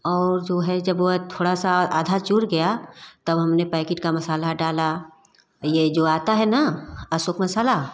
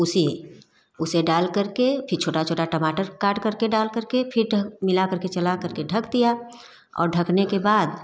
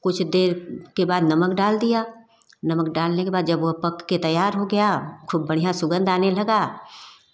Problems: constant background noise